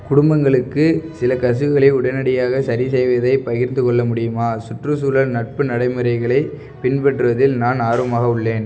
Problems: background sounds at intervals